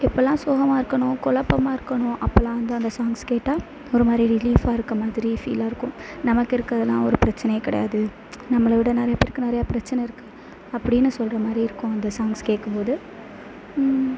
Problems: constant background noise